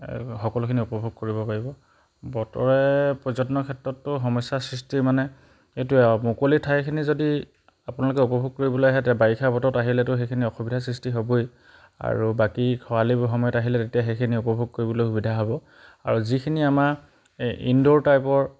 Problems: background sounds at intervals